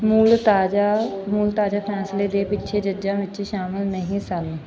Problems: background sounds at intervals